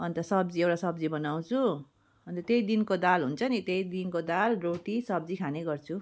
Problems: background sounds at intervals